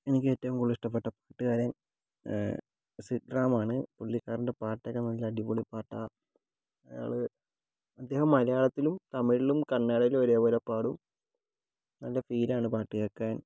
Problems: low volume